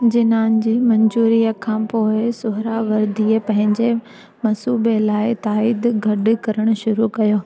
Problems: constant background noise